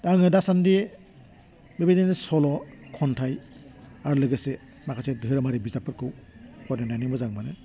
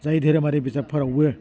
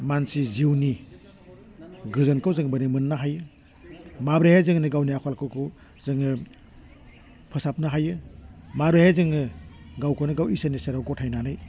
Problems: low volume